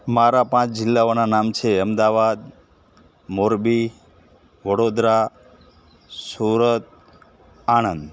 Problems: constant background noise